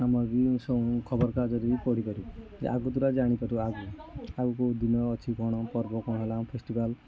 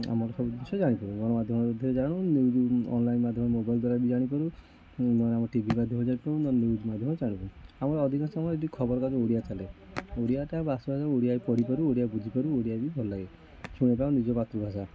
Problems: constant background noise, continuous background conversations, echo